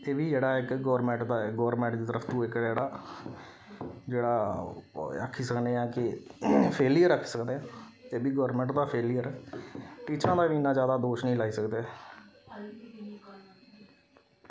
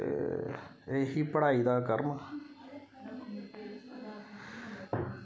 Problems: none marked